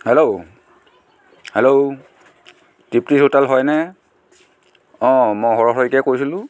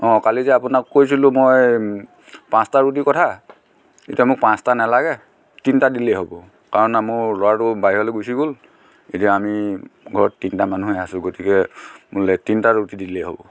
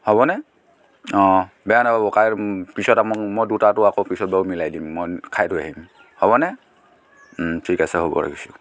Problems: background sounds at intervals, continuous background conversations